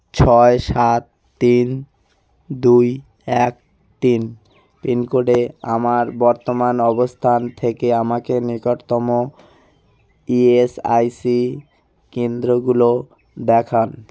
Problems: constant background noise